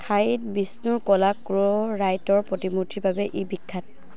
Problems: none marked